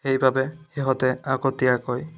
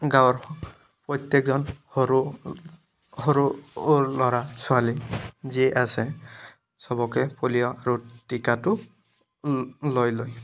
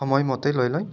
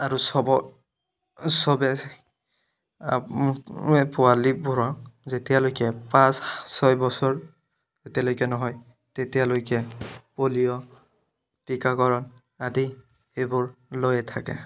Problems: none marked